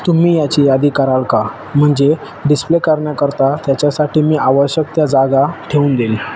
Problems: constant background noise